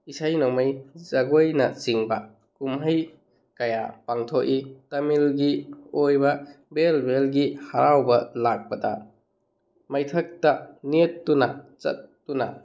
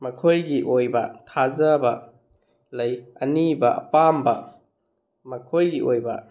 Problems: none marked